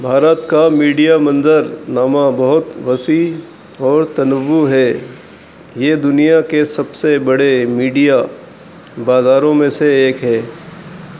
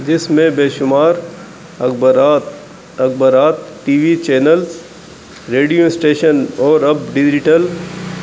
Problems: constant background noise, low volume